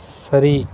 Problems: none marked